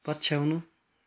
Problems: background sounds at intervals